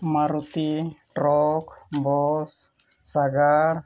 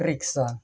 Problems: none marked